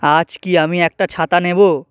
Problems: constant background noise